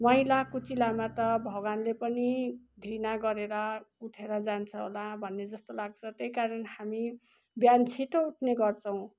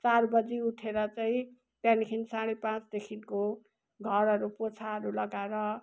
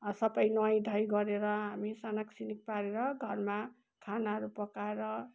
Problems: background sounds at intervals